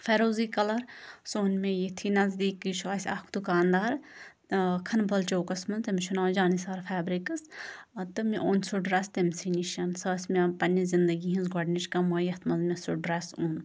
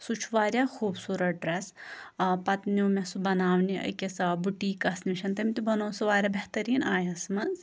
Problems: constant background noise